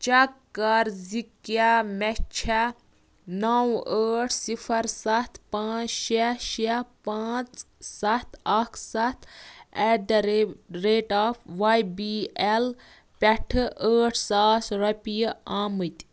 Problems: none marked